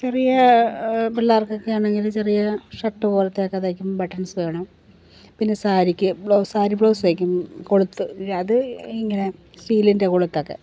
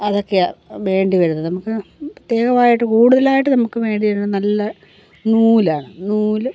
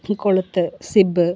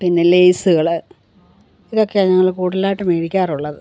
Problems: constant background noise